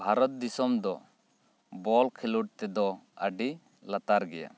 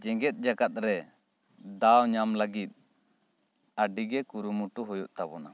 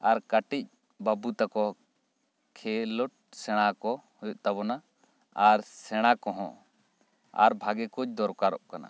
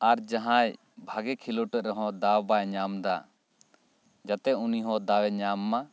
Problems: background sounds at intervals